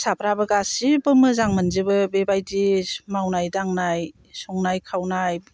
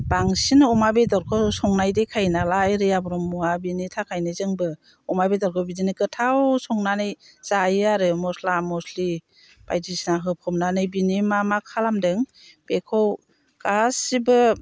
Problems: none marked